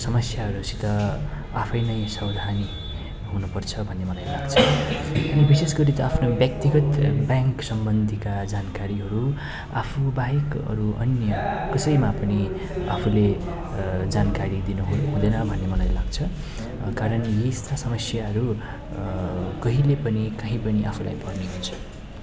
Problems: continuous background conversations